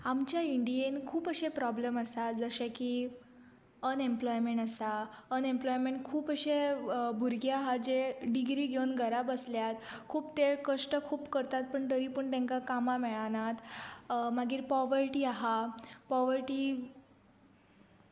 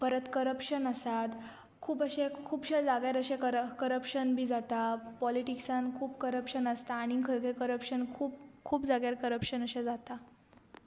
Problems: background sounds at intervals